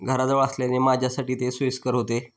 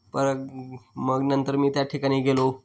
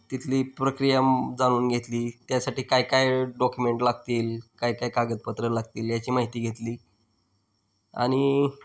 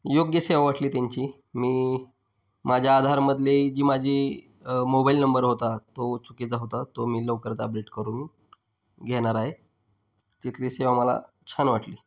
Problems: background sounds at intervals